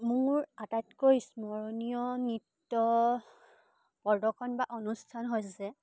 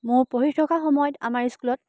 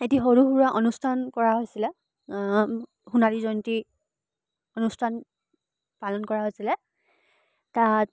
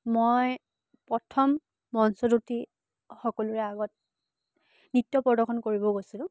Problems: background sounds at intervals